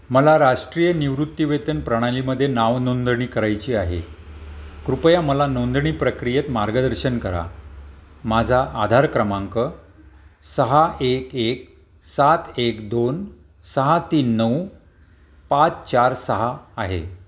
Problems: none marked